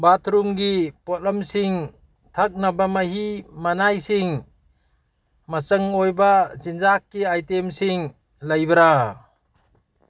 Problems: background sounds at intervals